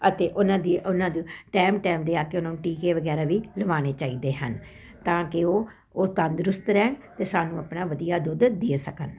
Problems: constant background noise